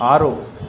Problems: none marked